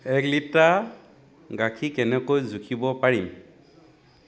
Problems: none marked